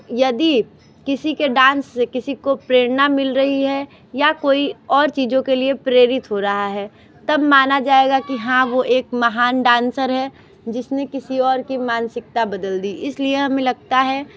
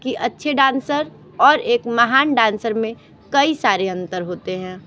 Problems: none marked